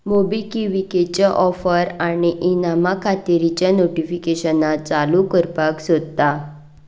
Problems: background sounds at intervals